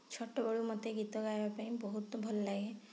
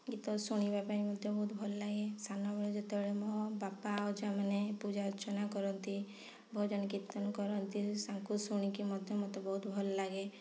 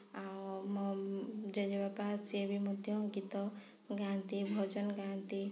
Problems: low volume